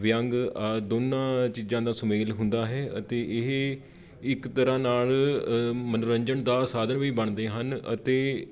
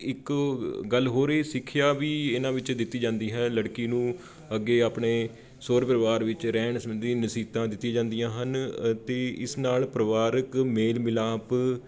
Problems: background sounds at intervals